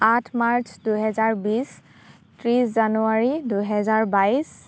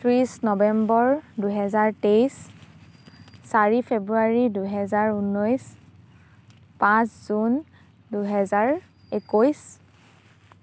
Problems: background sounds at intervals